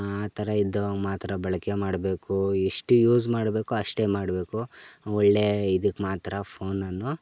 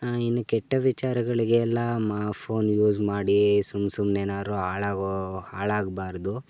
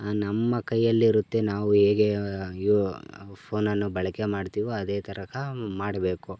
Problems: background sounds at intervals